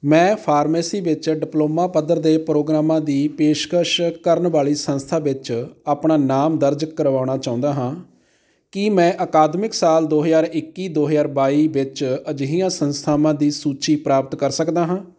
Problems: background sounds at intervals